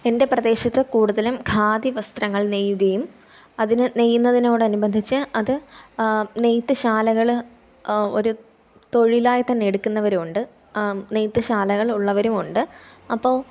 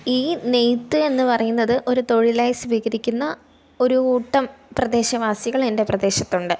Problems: none marked